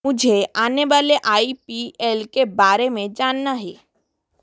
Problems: background sounds at intervals